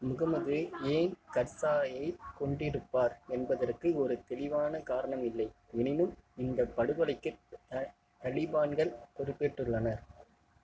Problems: constant background noise